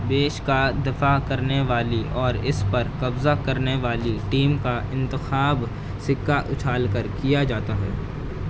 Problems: constant background noise